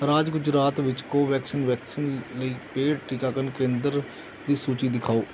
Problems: background sounds at intervals